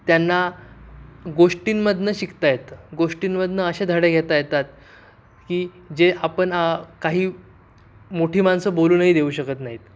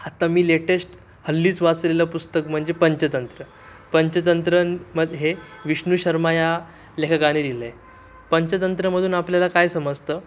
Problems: background sounds at intervals